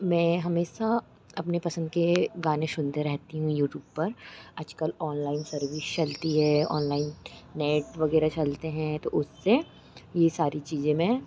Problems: none marked